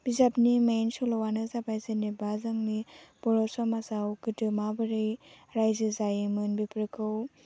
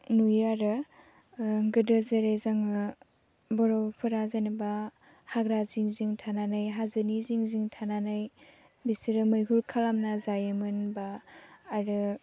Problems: low volume